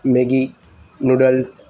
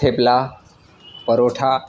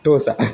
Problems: constant background noise